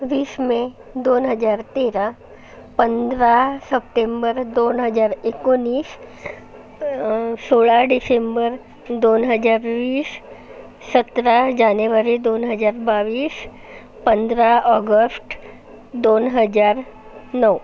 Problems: none marked